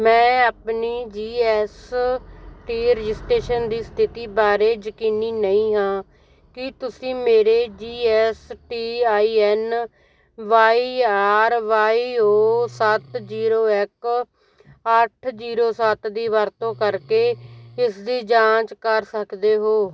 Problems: constant background noise